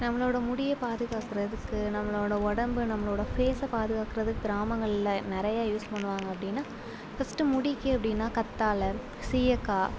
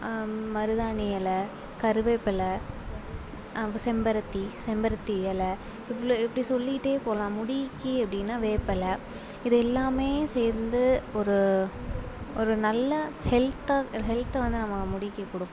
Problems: constant background noise